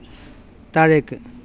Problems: background sounds at intervals